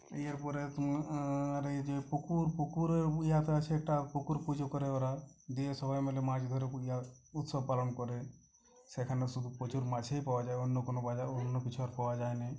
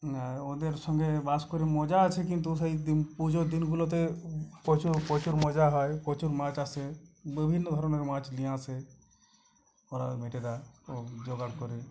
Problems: none marked